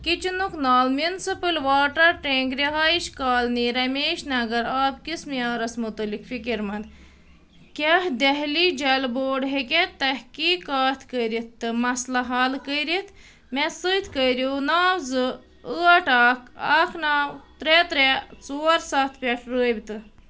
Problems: none marked